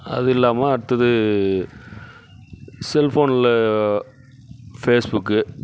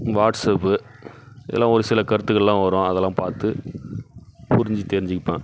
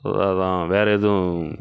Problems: constant background noise